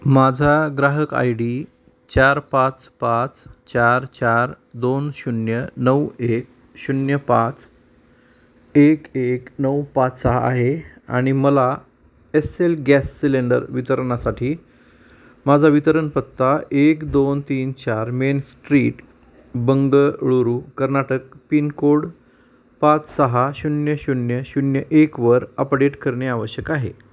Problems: none marked